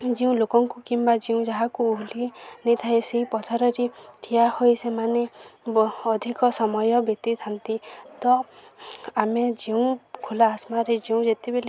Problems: constant background noise, continuous background conversations